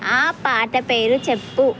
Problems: none marked